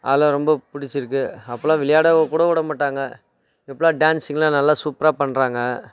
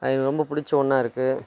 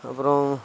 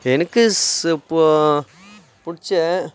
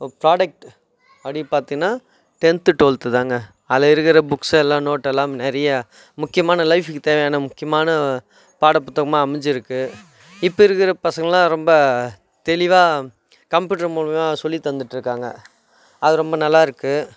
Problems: background sounds at intervals